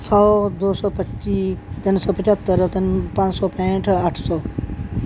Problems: none marked